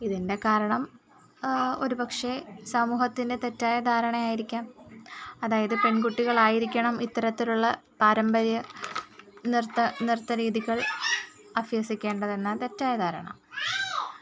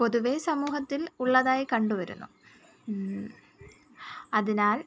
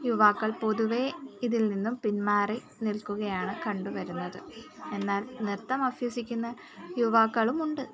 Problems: background sounds at intervals